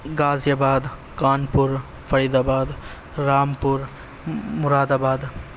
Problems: constant background noise